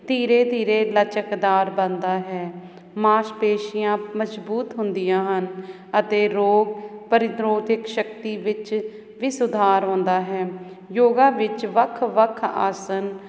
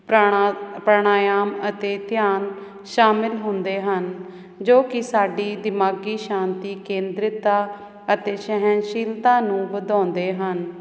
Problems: none marked